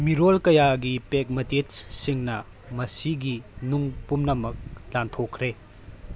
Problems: constant background noise